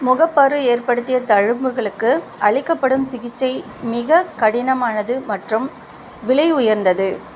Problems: constant background noise